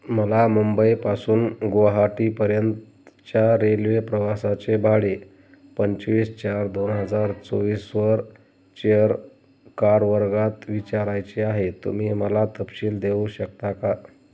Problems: none marked